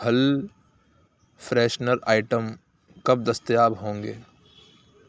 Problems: none marked